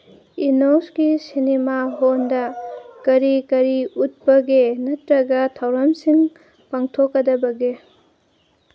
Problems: background sounds at intervals